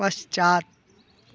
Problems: constant background noise